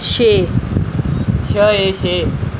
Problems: background conversations at intervals